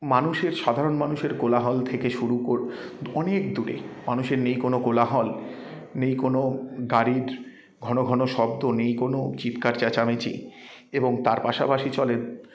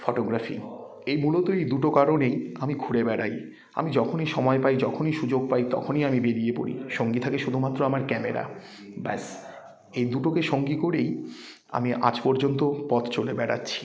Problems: none marked